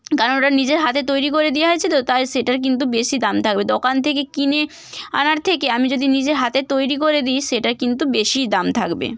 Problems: none marked